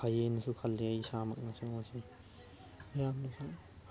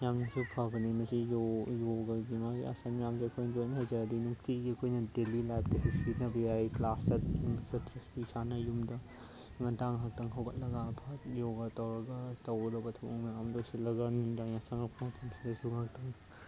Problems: constant background noise, background conversations at intervals